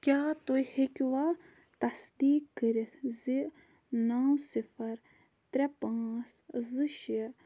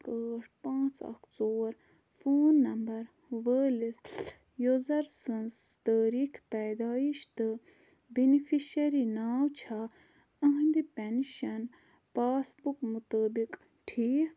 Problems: constant background noise